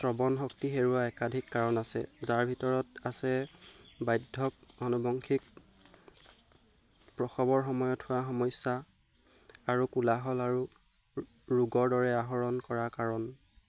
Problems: none marked